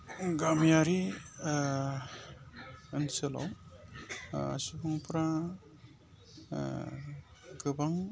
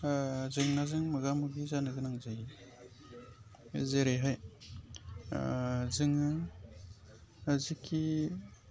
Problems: constant background noise